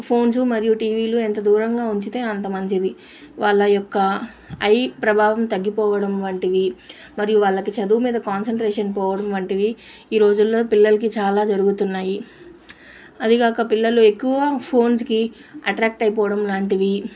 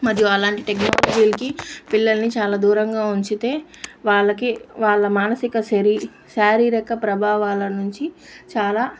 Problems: constant background noise